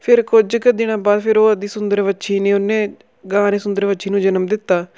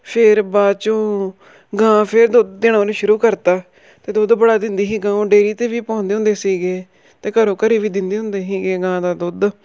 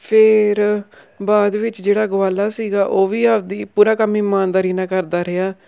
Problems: background sounds at intervals